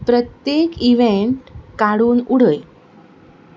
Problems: background sounds at intervals